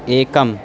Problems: background sounds at intervals